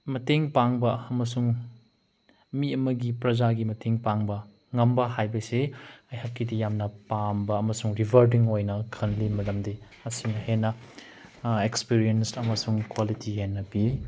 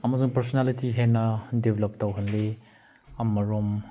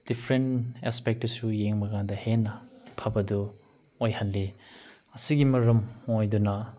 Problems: background sounds at intervals